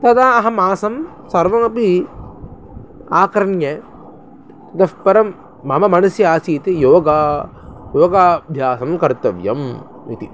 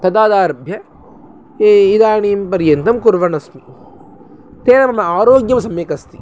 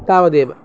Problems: none marked